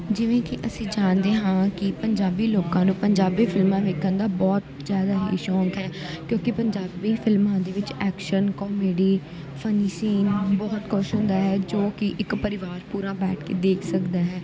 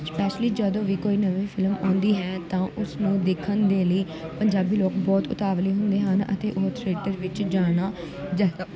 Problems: continuous background conversations